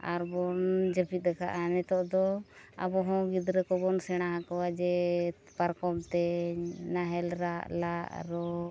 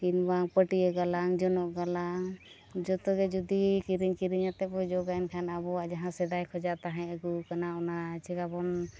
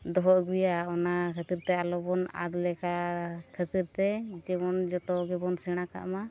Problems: background sounds at intervals, low volume